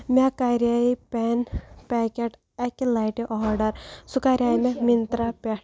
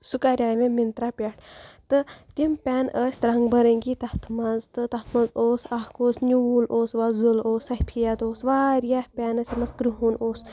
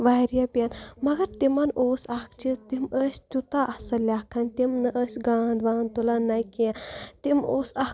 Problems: background sounds at intervals